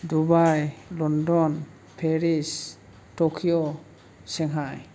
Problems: none marked